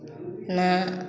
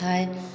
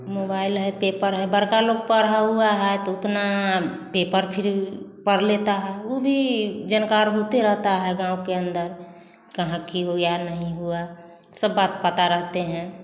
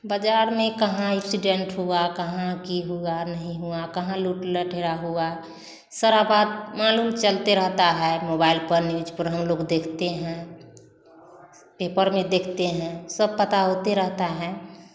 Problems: none marked